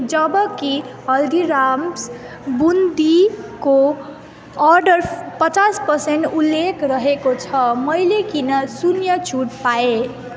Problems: echo